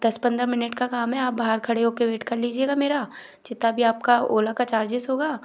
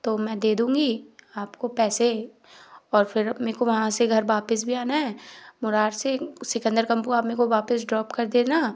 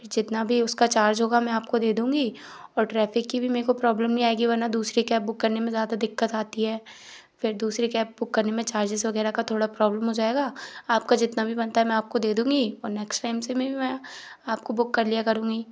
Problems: background sounds at intervals